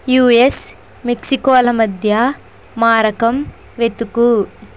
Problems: constant background noise